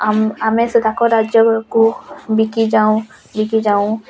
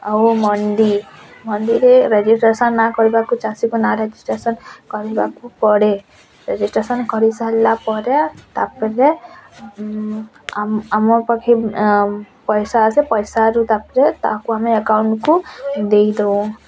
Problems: constant background noise, continuous background conversations